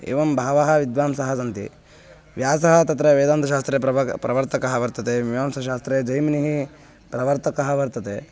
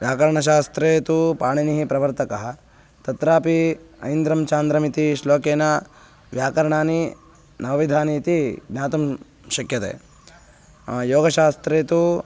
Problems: constant background noise